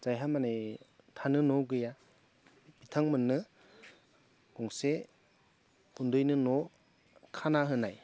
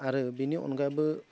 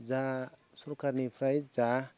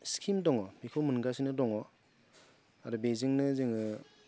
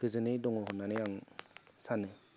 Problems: low volume